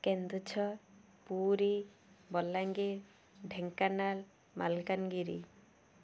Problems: none marked